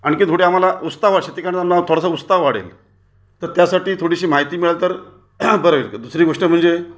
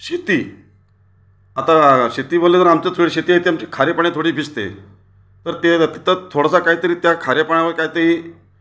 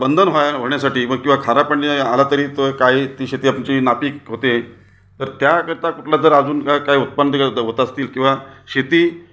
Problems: none marked